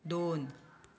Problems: continuous background conversations